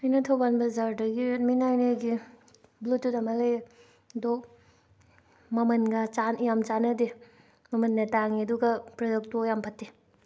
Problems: none marked